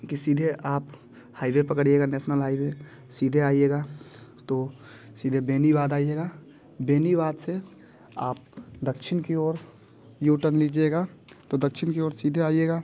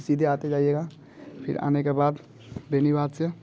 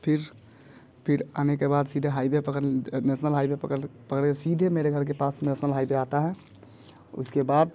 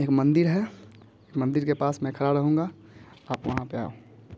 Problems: none marked